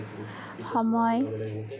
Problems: continuous background conversations